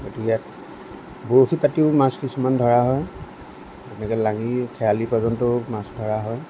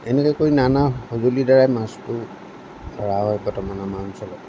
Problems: none marked